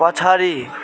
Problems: constant background noise